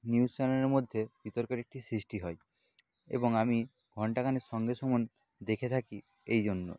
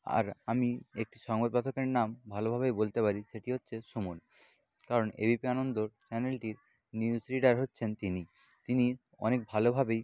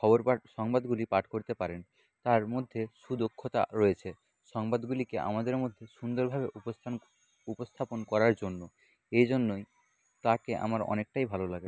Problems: background sounds at intervals